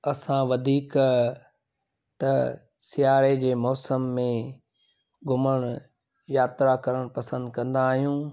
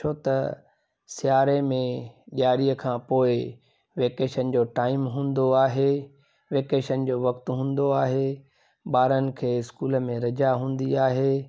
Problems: none marked